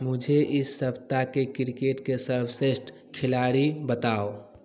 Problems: background sounds at intervals, continuous background conversations